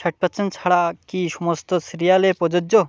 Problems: constant background noise